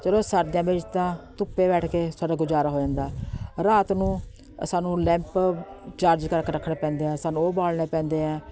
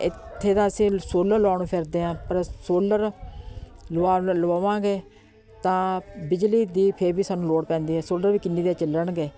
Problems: constant background noise